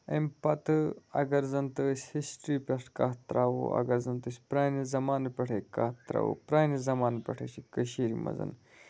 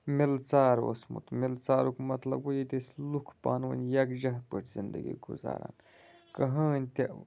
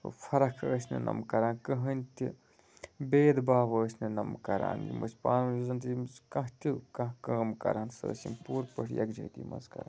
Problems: none marked